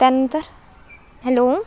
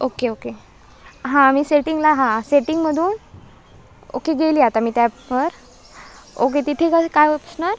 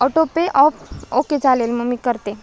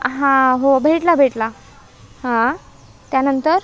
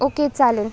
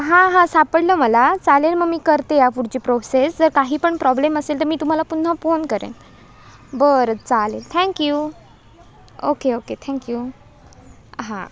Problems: none marked